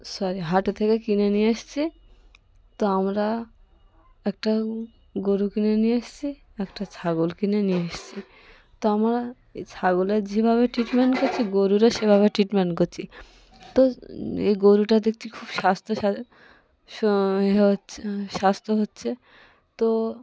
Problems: constant background noise, continuous background conversations